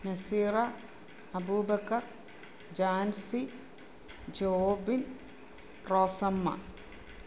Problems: low volume